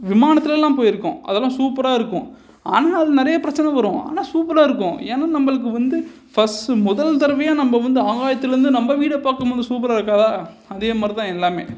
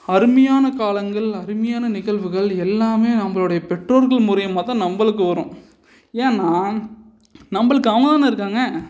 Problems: none marked